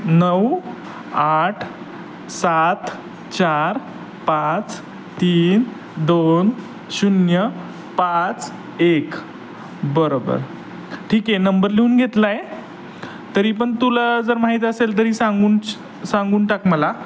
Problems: constant background noise, background conversations at intervals